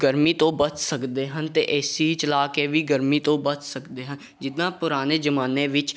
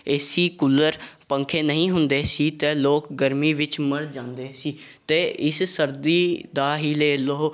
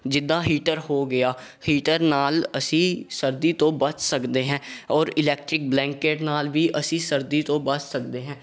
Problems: background sounds at intervals